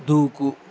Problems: constant background noise